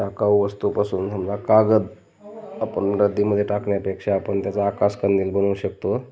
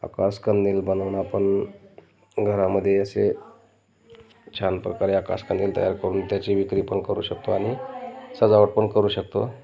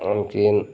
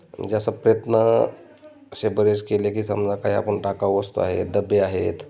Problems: constant background noise, continuous background conversations